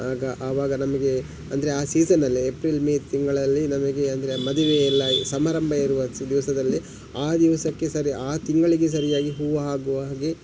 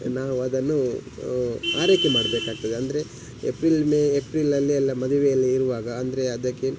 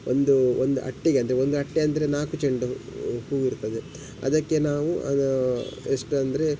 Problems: none marked